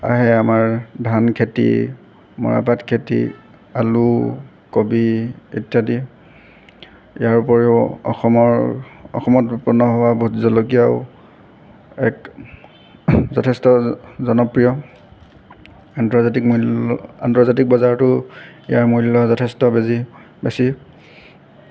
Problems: background sounds at intervals